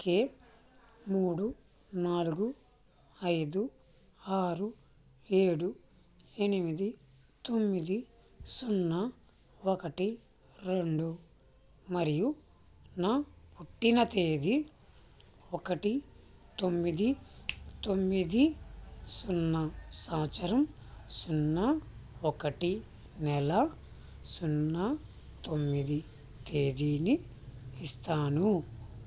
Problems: constant background noise